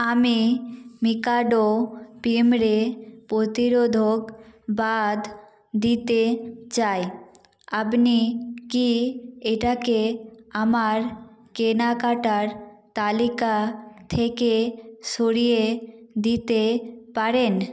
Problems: none marked